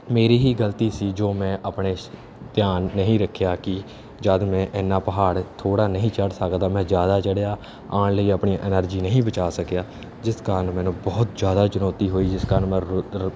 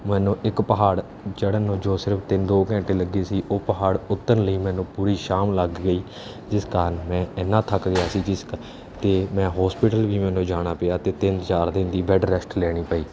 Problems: constant background noise